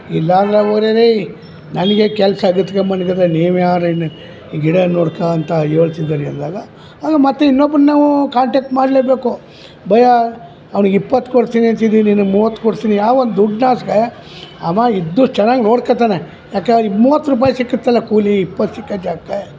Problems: background sounds at intervals, background conversations at intervals